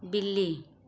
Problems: background sounds at intervals